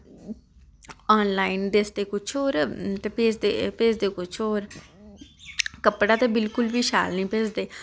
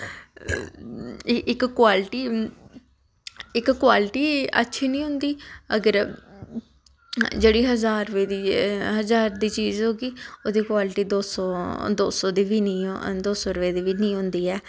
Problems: constant background noise